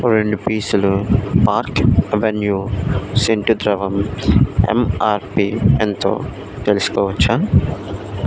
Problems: constant background noise